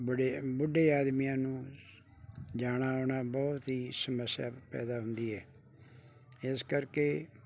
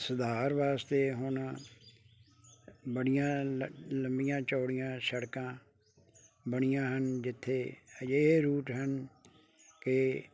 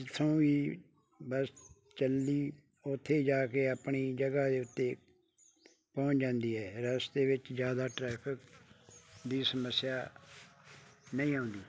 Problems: none marked